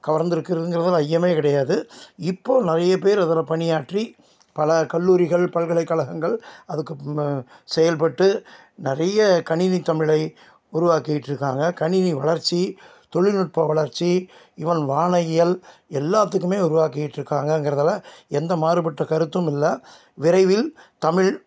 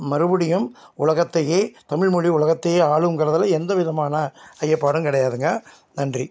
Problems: none marked